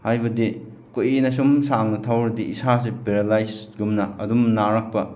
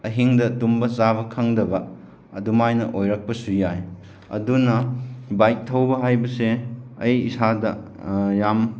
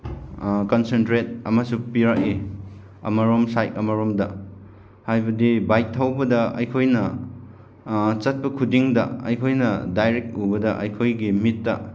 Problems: none marked